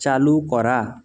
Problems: constant background noise